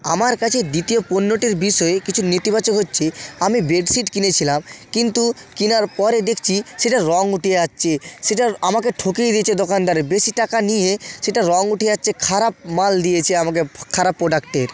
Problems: constant background noise